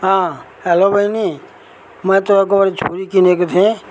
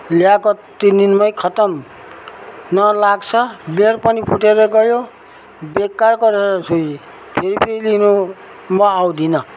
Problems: background sounds at intervals